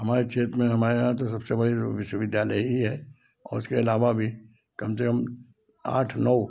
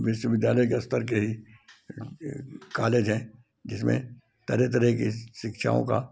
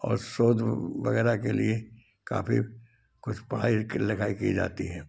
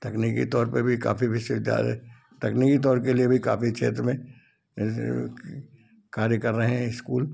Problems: none marked